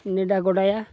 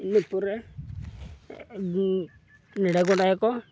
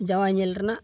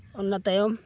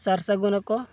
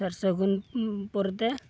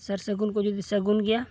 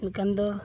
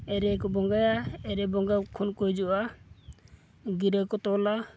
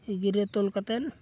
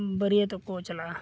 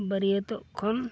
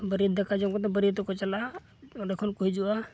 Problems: none marked